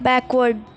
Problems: constant background noise